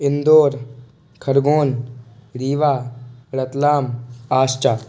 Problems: background sounds at intervals